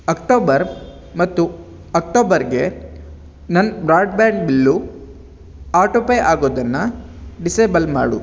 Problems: background sounds at intervals